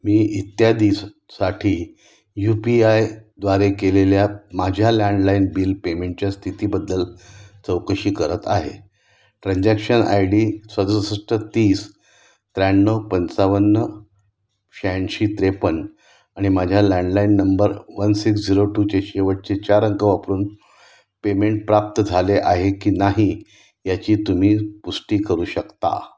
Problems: constant background noise